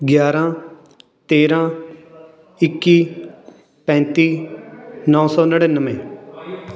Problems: continuous background conversations